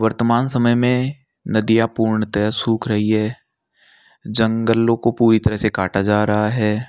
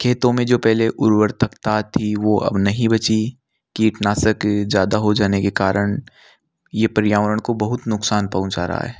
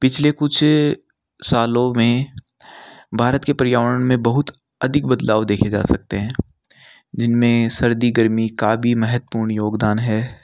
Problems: background sounds at intervals